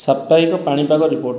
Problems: background sounds at intervals, background conversations at intervals